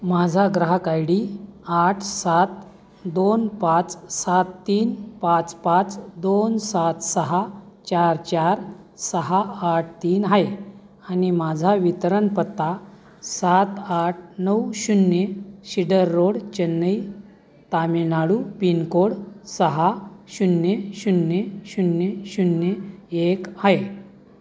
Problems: constant background noise, continuous background conversations